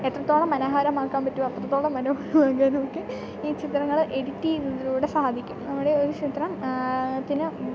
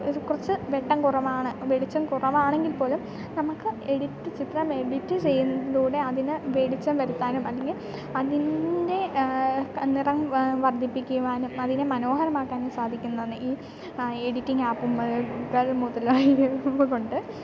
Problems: background sounds at intervals, background conversations at intervals